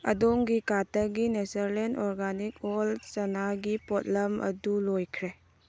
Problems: background sounds at intervals